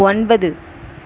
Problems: none marked